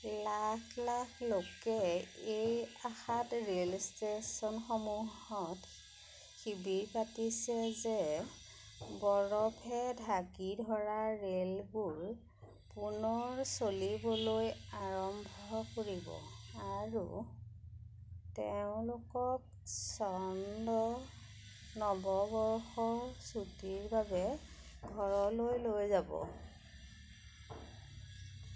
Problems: background sounds at intervals